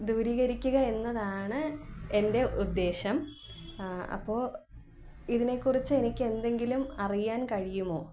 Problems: none marked